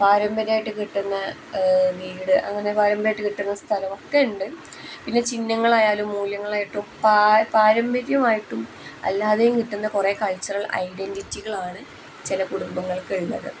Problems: none marked